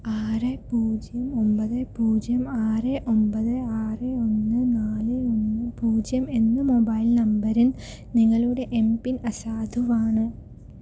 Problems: low volume